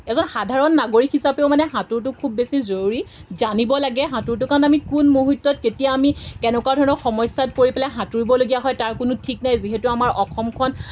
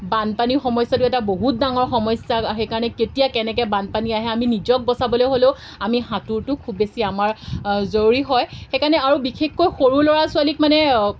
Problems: background sounds at intervals